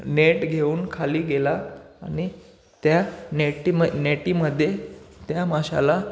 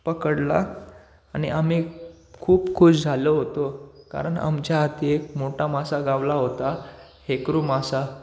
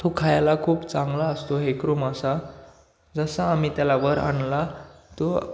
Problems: constant background noise